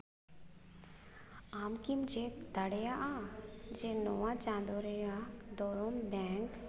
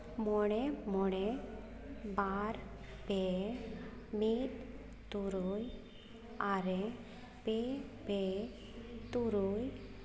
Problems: none marked